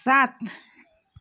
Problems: background sounds at intervals